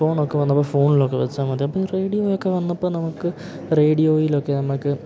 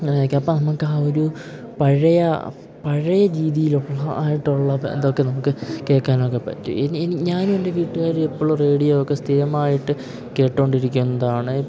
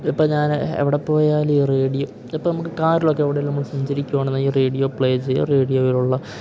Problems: none marked